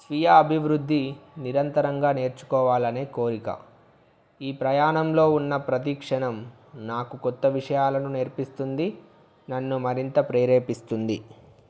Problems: background sounds at intervals